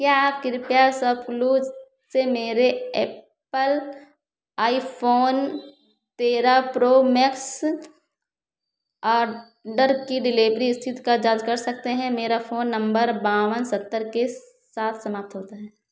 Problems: background sounds at intervals, echo